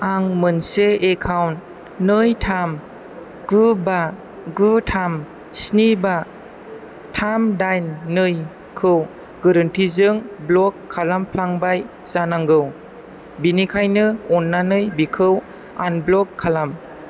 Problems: none marked